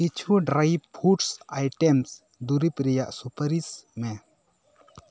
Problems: none marked